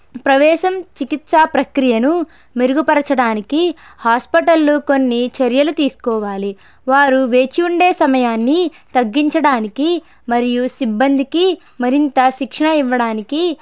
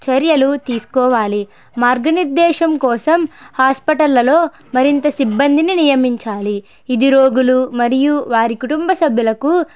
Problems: none marked